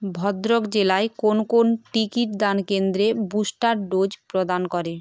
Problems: constant background noise